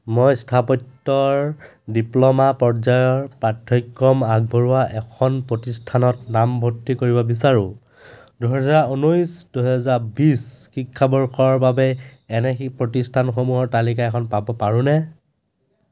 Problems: background sounds at intervals